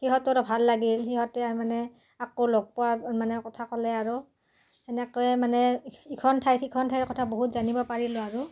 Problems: constant background noise, background conversations at intervals